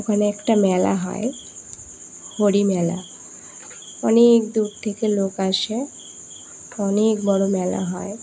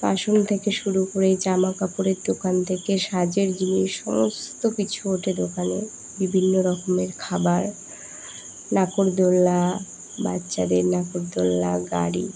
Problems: none marked